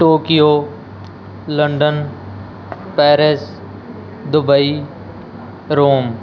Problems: none marked